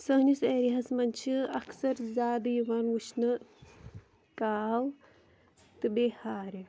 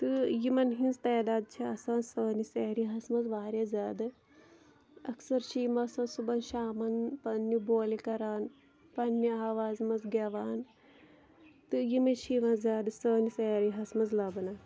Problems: none marked